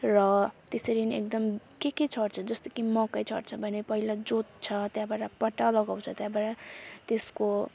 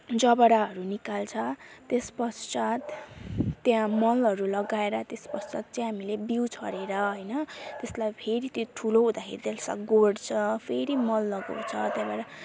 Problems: constant background noise